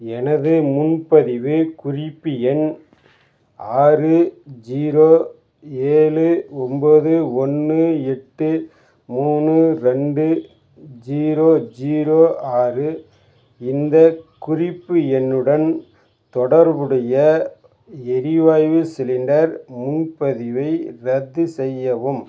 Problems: background sounds at intervals